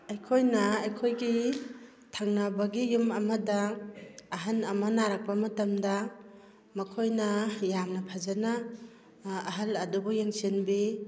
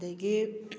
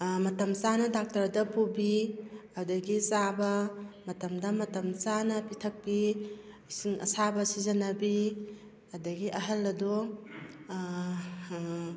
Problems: none marked